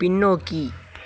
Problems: none marked